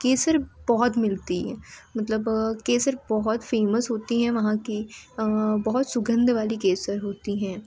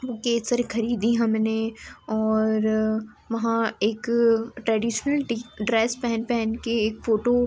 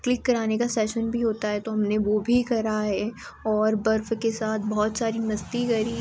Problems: constant background noise